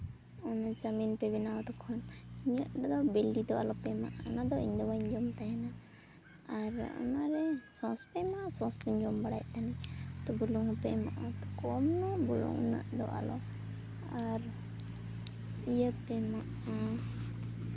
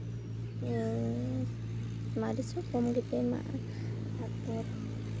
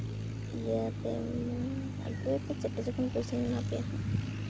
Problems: background sounds at intervals